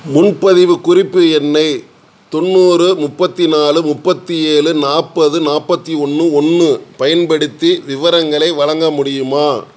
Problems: none marked